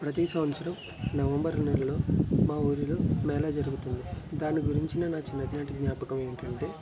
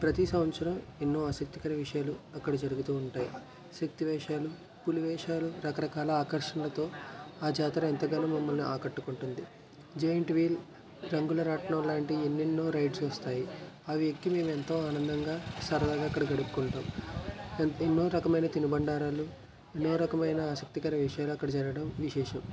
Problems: none marked